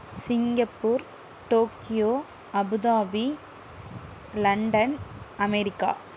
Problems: none marked